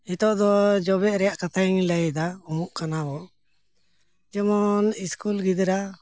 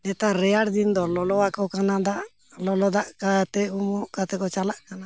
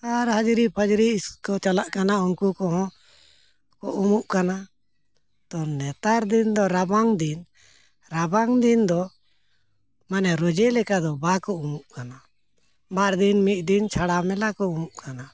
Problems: none marked